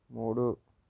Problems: low volume